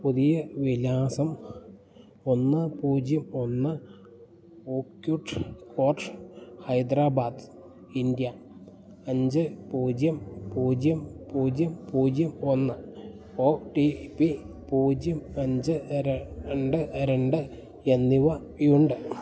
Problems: none marked